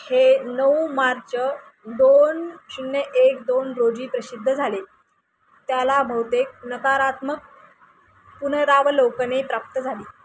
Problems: constant background noise